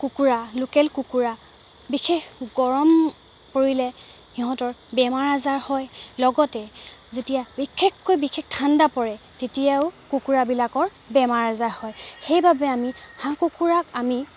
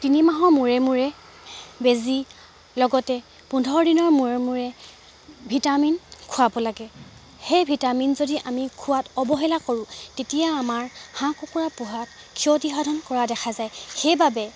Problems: background sounds at intervals